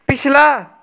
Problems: none marked